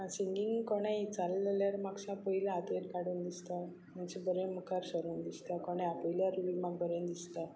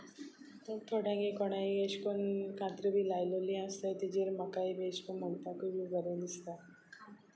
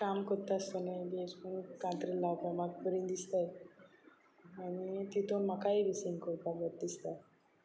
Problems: none marked